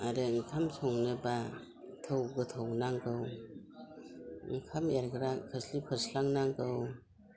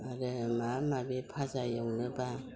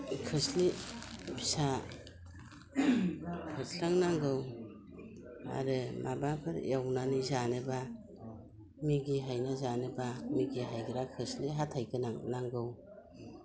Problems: constant background noise